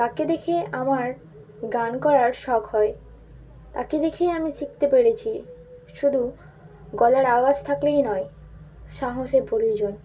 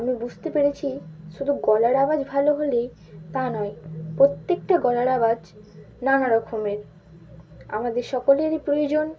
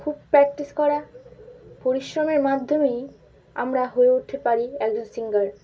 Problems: constant background noise